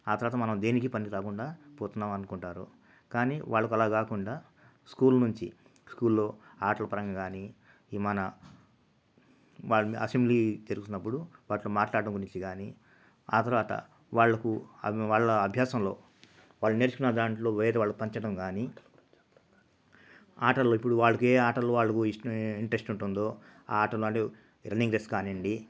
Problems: constant background noise